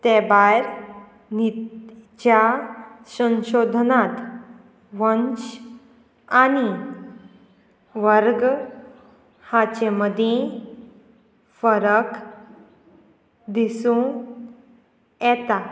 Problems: none marked